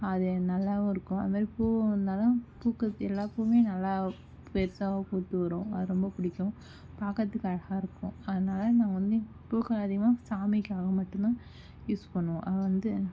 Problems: low volume